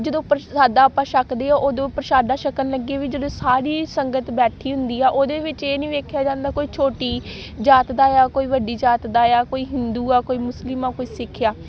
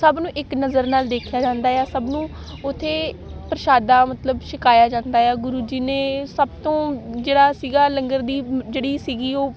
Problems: constant background noise